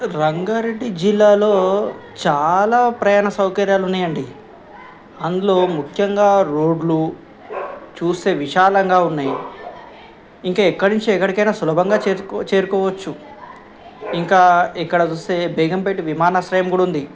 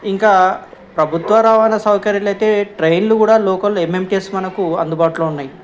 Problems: background sounds at intervals, background conversations at intervals